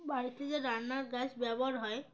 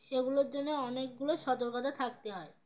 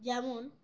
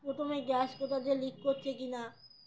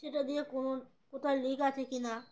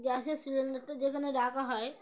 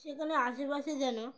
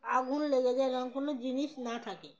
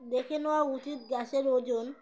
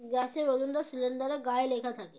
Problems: background sounds at intervals